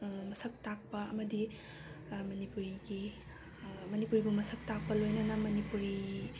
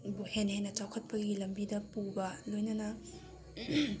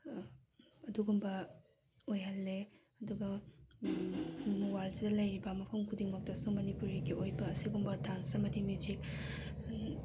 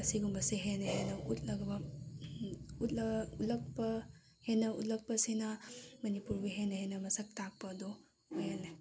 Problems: background sounds at intervals